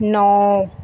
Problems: background sounds at intervals